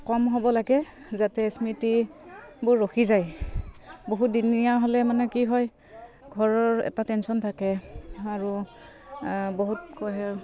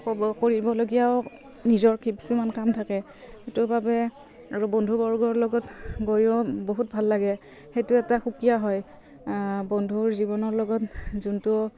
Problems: none marked